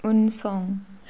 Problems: constant background noise